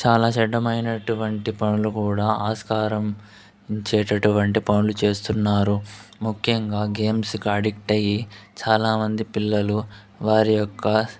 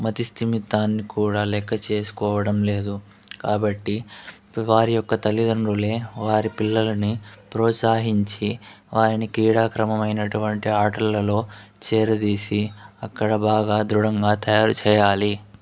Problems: none marked